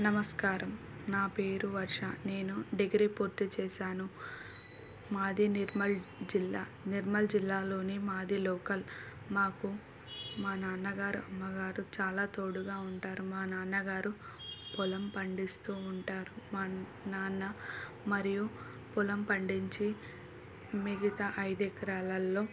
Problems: none marked